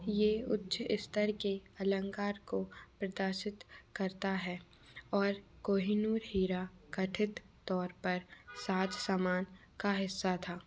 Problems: none marked